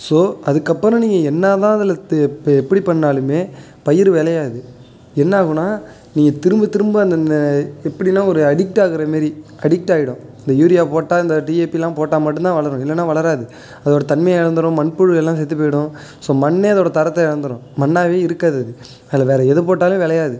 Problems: none marked